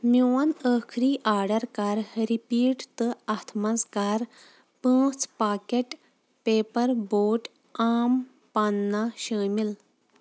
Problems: none marked